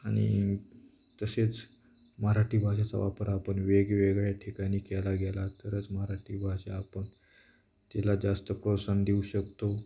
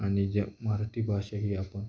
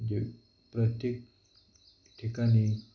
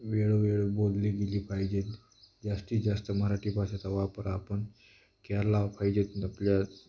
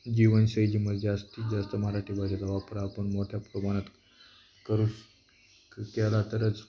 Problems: background sounds at intervals, background conversations at intervals